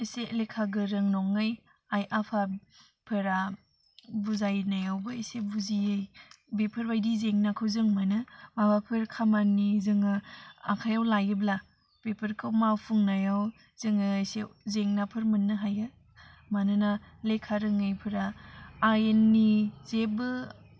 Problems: constant background noise